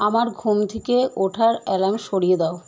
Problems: constant background noise